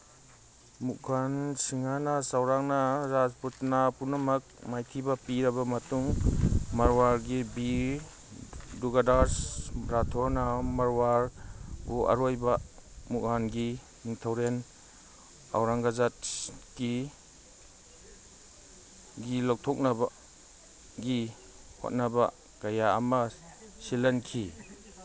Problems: background sounds at intervals